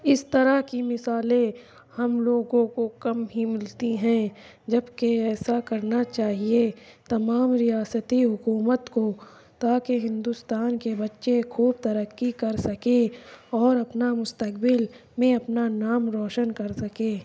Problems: constant background noise